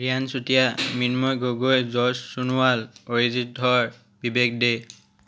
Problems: background sounds at intervals